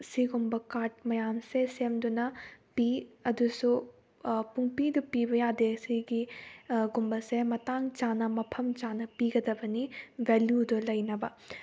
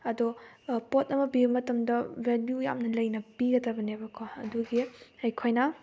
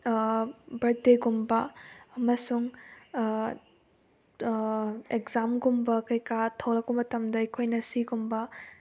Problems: background sounds at intervals